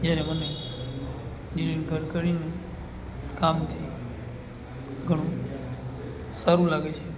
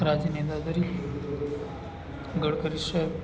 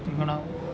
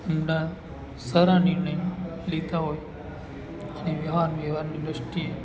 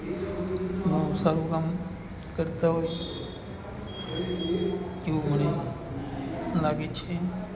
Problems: continuous background conversations